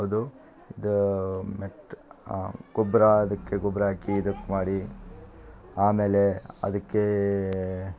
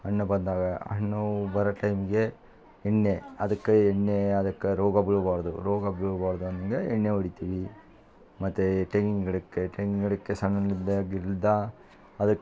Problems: constant background noise